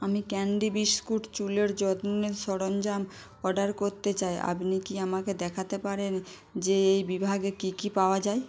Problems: constant background noise